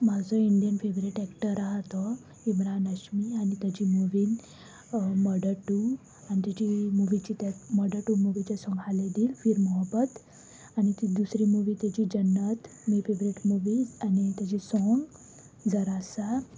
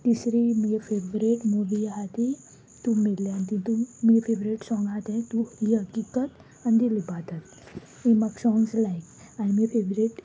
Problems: none marked